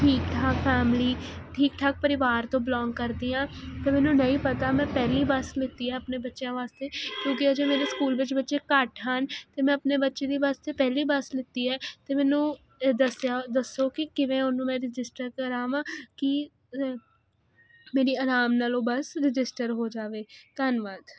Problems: constant background noise